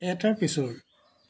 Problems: none marked